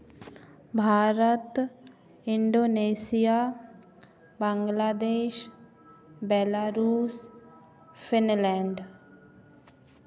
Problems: none marked